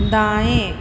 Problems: constant background noise, echo